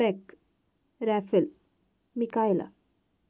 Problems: none marked